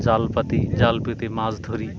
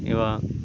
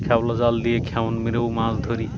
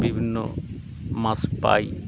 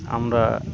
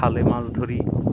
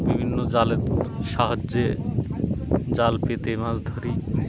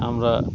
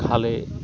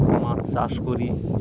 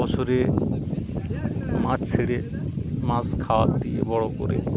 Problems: constant background noise, background conversations at intervals